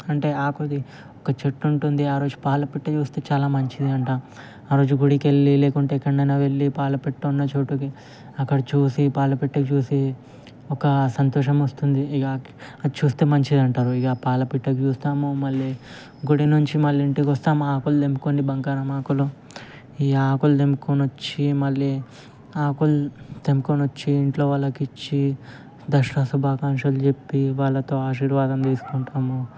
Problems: constant background noise